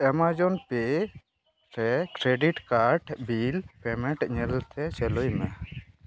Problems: constant background noise